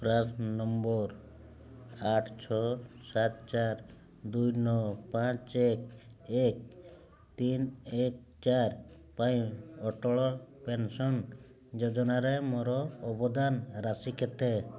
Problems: none marked